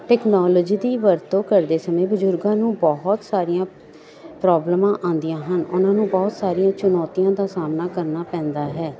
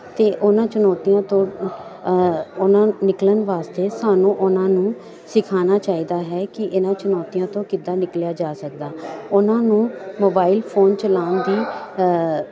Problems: none marked